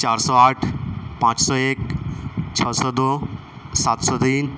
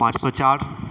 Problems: constant background noise